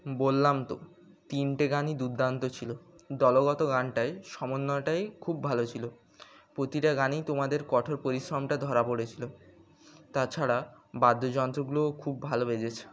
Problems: none marked